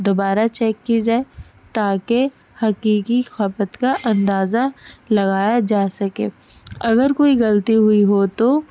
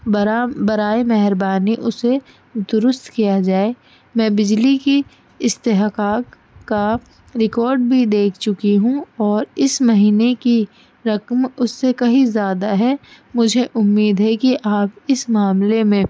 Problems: constant background noise